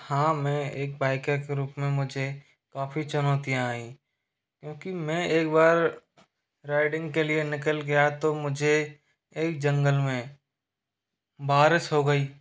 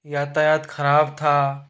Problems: constant background noise